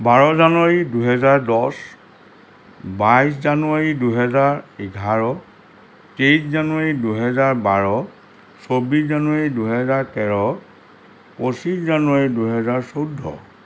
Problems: constant background noise